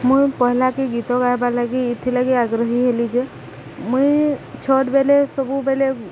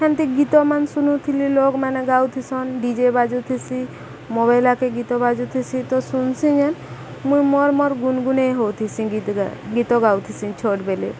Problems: background sounds at intervals, background conversations at intervals